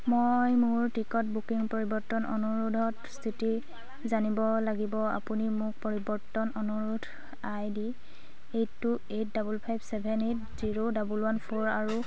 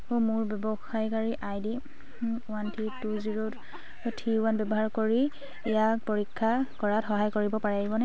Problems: none marked